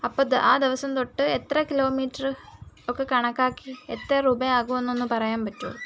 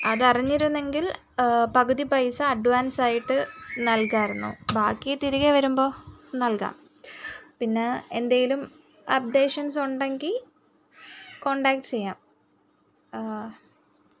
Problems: background sounds at intervals